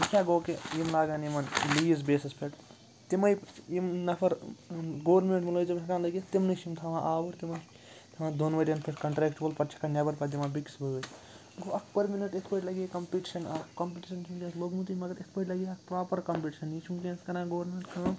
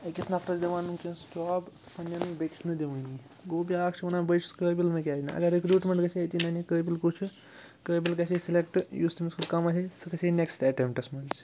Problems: constant background noise